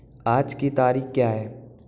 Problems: background sounds at intervals